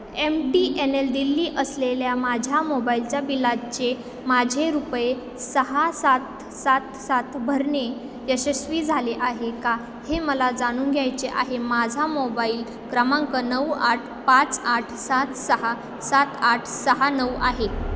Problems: constant background noise, background conversations at intervals, echo